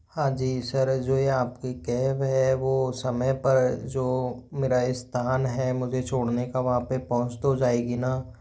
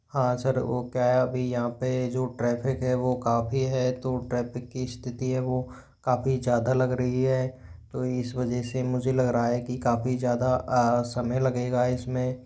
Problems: background sounds at intervals